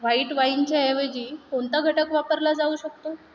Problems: background sounds at intervals